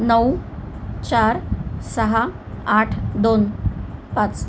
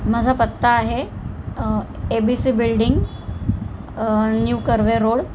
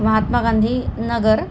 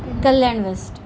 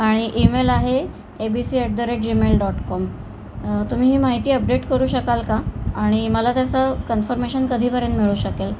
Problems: constant background noise, background conversations at intervals